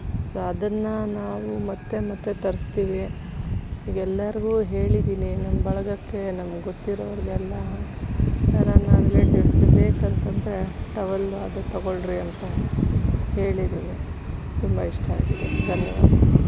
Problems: constant background noise